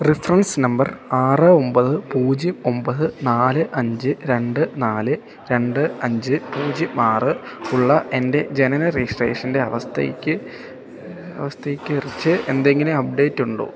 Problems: constant background noise